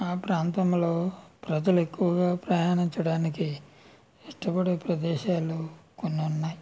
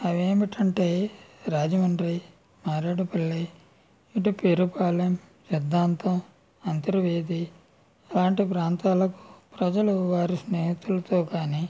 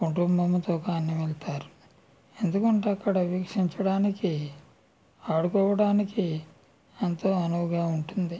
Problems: none marked